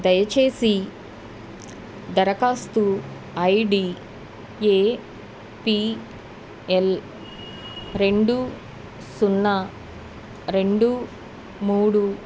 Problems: none marked